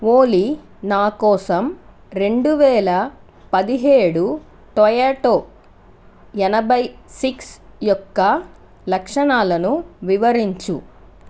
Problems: constant background noise